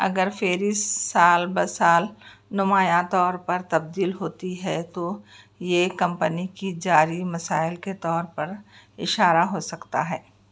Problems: background sounds at intervals